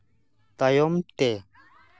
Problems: background conversations at intervals